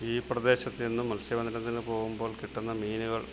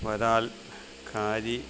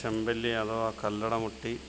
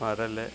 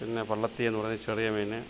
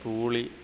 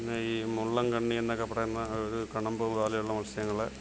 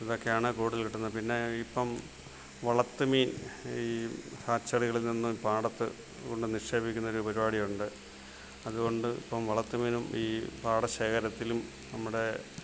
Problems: none marked